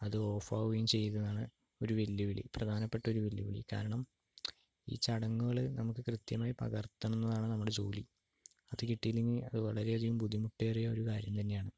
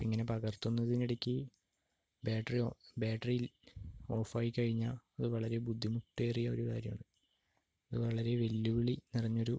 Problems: low volume